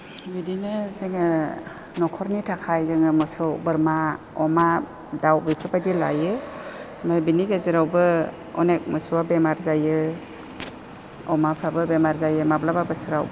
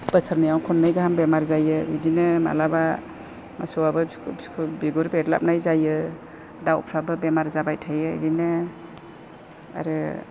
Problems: constant background noise